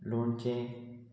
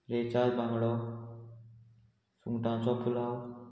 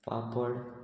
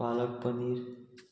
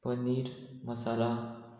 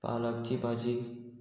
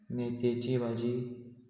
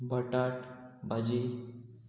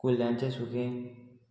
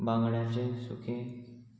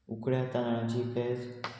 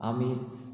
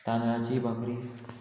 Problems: constant background noise